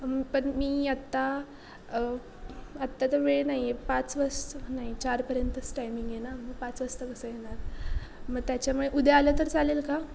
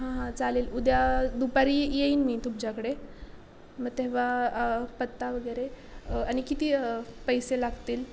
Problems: constant background noise